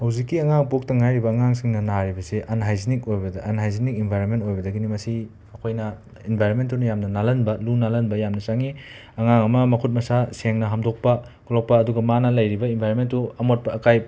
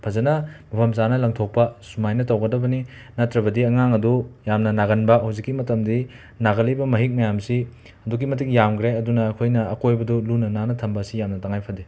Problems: constant background noise